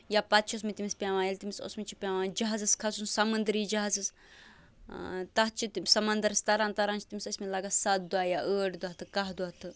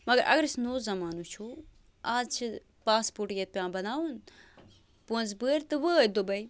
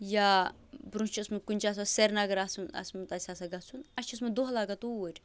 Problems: constant background noise